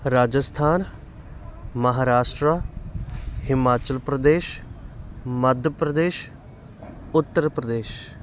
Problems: constant background noise